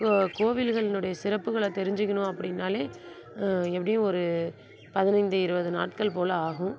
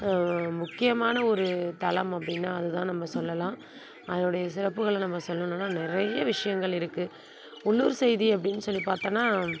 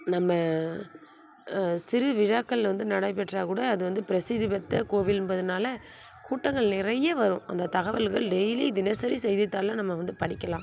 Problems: constant background noise